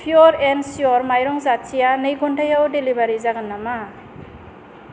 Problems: none marked